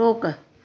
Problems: none marked